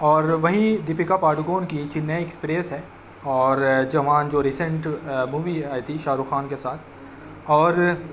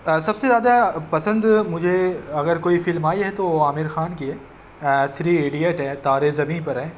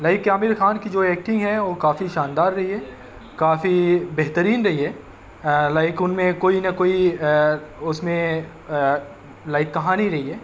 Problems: constant background noise